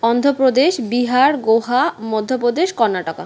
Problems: none marked